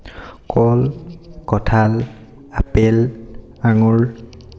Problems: none marked